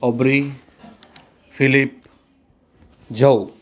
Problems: none marked